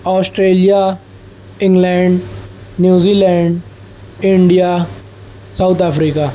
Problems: none marked